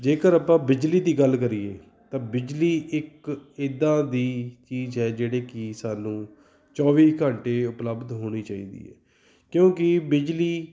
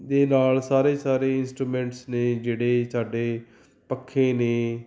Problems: none marked